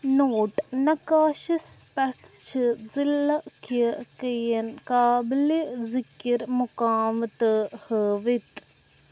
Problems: constant background noise